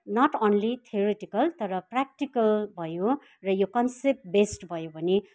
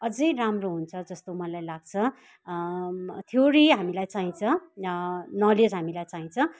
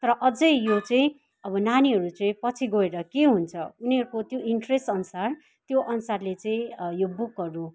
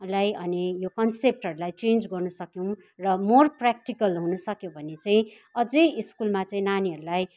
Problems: background sounds at intervals